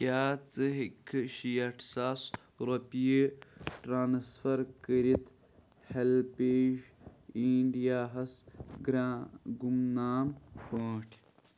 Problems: background sounds at intervals, low volume